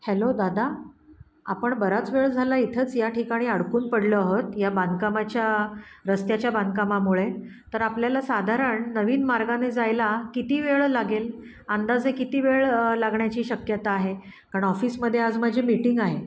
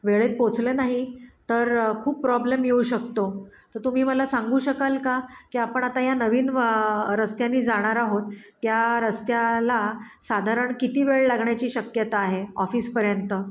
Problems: background sounds at intervals